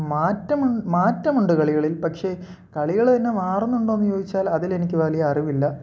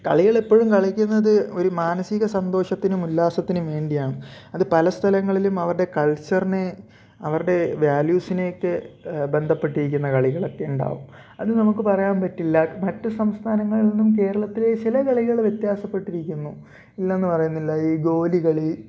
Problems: none marked